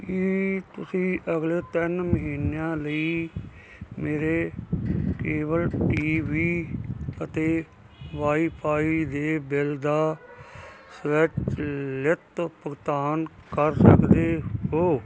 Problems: none marked